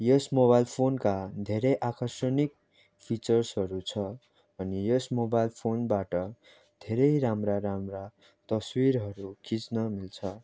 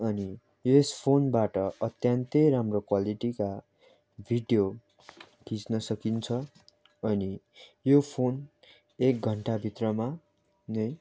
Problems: none marked